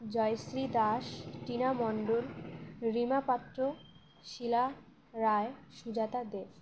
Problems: background sounds at intervals